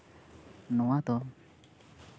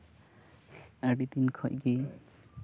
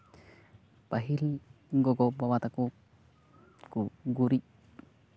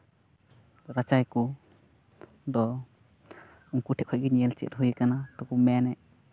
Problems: constant background noise, continuous background conversations